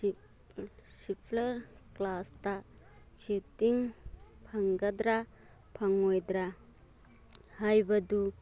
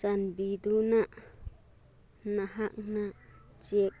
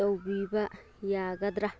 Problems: none marked